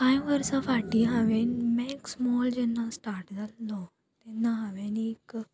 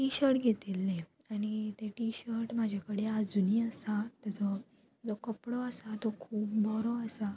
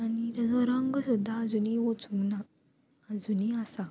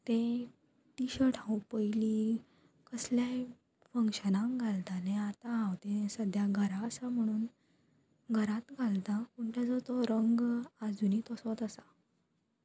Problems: constant background noise